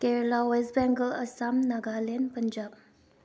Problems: background sounds at intervals